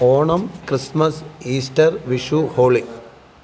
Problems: background sounds at intervals